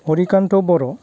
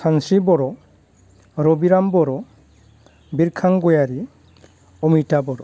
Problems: low volume